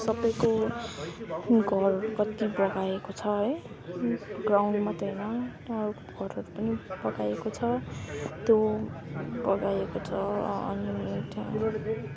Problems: constant background noise, continuous background conversations